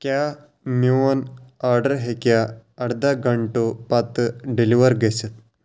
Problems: none marked